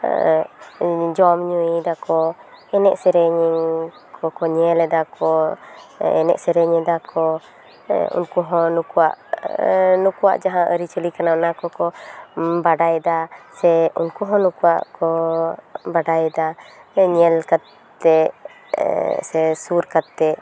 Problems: none marked